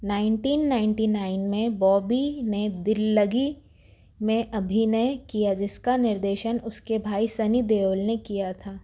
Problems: constant background noise